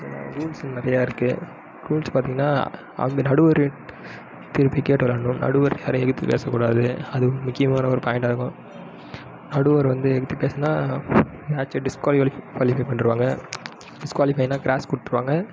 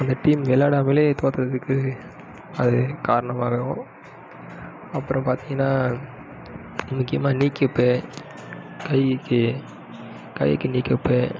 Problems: background sounds at intervals